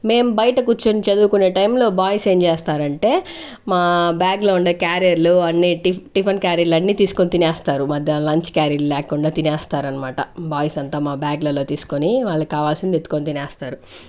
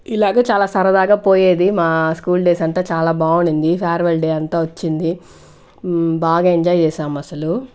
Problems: none marked